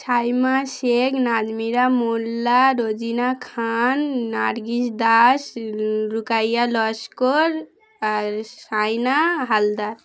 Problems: background sounds at intervals, background conversations at intervals